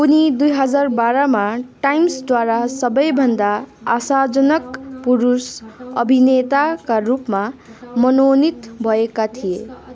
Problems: continuous background conversations